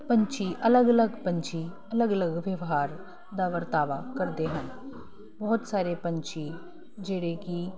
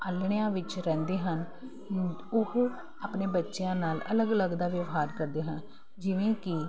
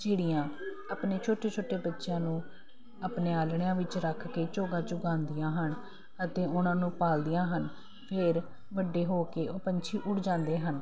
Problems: constant background noise